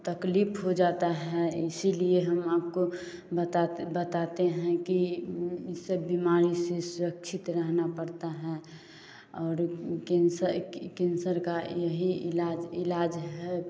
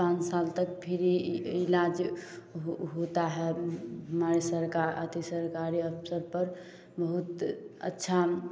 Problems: constant background noise